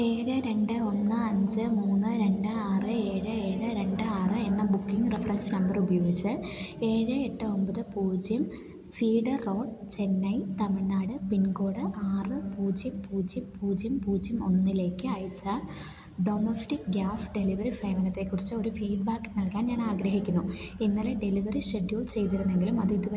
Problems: none marked